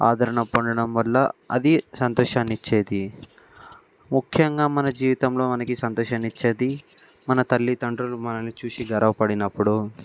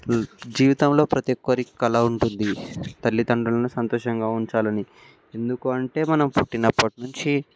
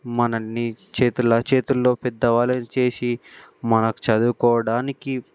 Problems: background sounds at intervals